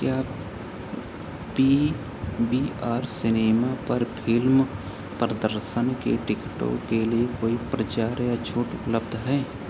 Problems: none marked